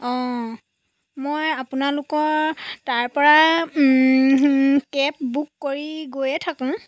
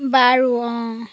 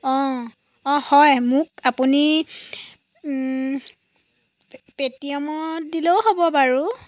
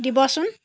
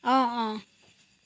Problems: none marked